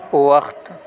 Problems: none marked